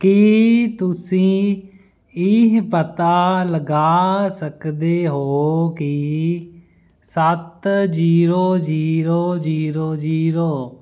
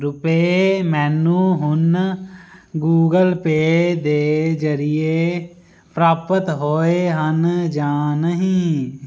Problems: constant background noise